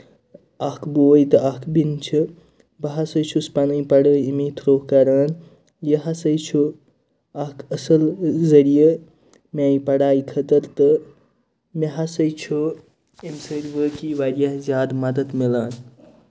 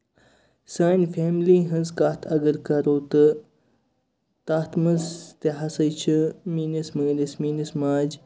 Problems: none marked